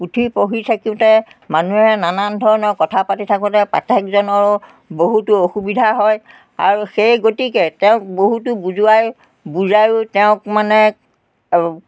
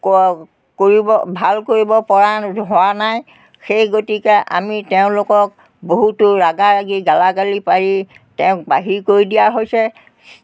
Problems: constant background noise